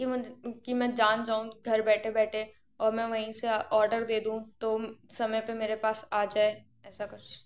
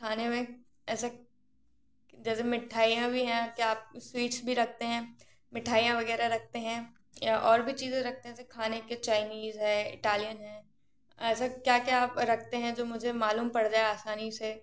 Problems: none marked